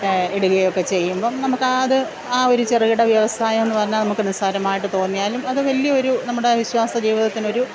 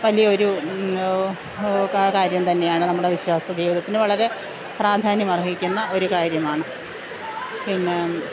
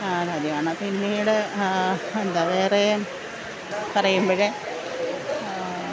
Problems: constant background noise